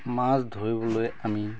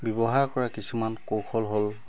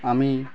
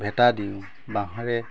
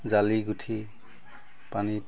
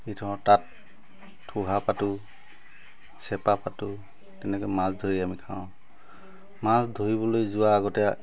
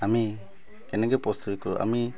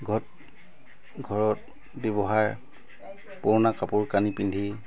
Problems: constant background noise